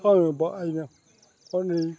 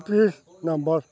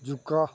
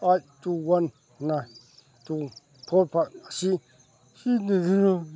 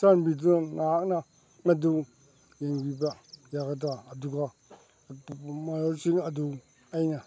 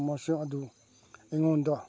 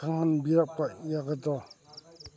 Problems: background sounds at intervals, background conversations at intervals